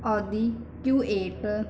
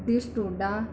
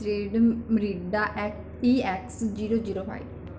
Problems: background sounds at intervals